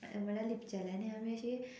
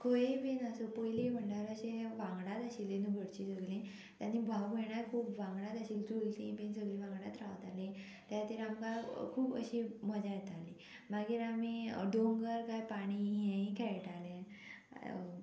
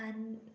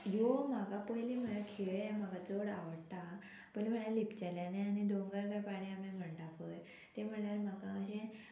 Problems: constant background noise